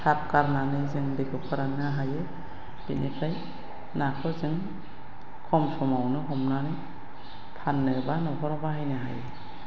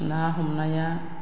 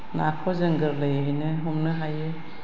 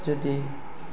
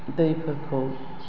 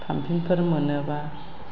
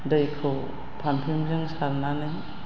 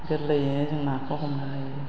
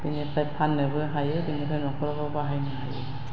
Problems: constant background noise